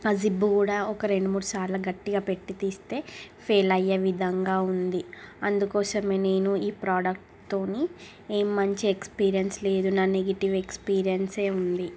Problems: constant background noise